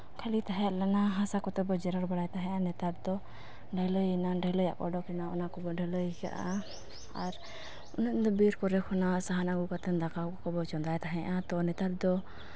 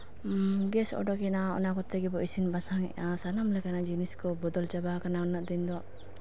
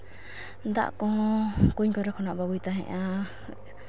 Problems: none marked